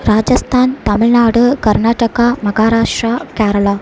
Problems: none marked